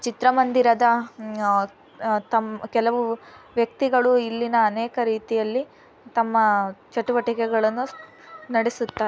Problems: background sounds at intervals